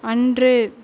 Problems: none marked